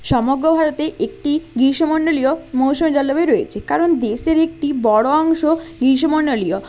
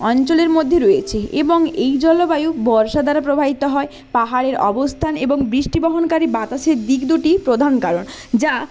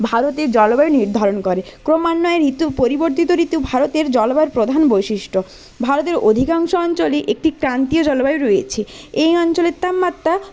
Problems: none marked